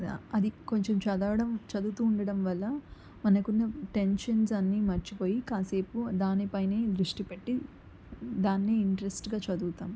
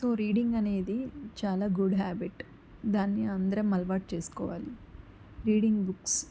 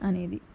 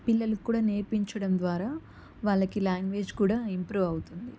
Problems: constant background noise